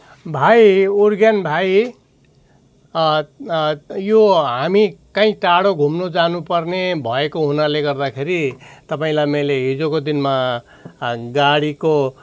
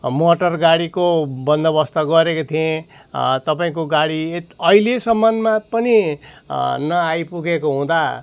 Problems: none marked